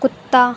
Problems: constant background noise